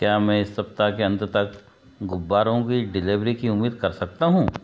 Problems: background sounds at intervals